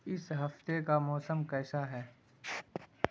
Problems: constant background noise